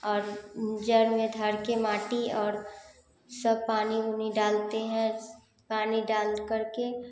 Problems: constant background noise